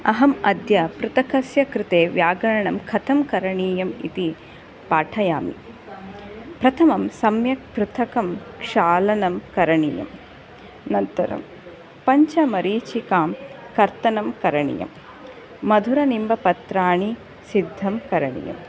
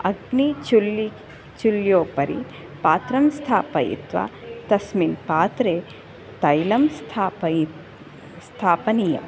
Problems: background sounds at intervals